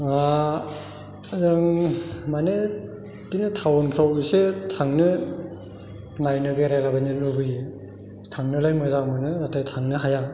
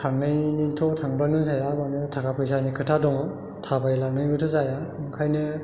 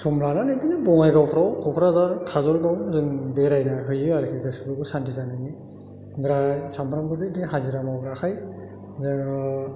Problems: none marked